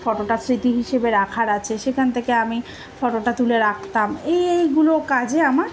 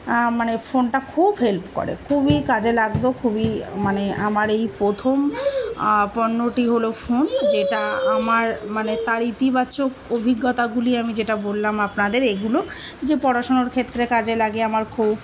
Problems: continuous background conversations